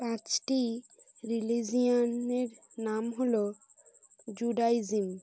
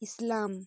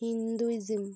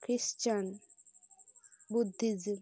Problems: constant background noise